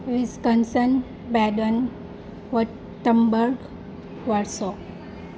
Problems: constant background noise